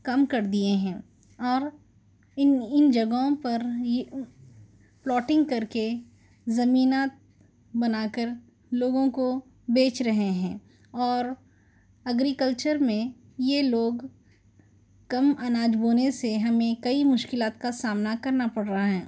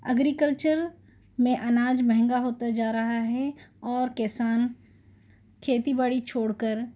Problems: none marked